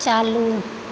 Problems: constant background noise